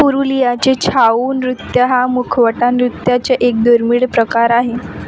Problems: constant background noise